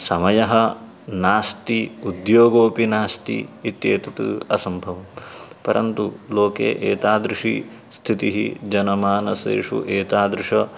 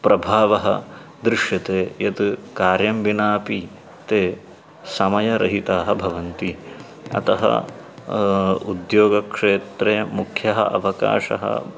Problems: background sounds at intervals